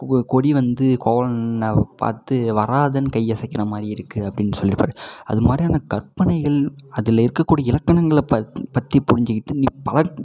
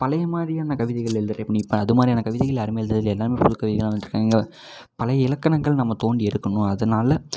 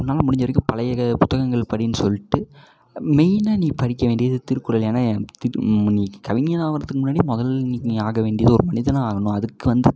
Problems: echo